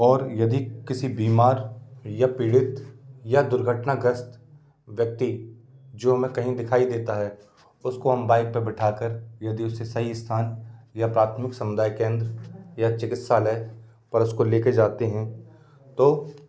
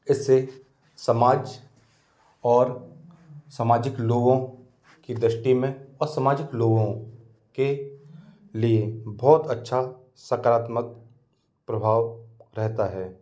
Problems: constant background noise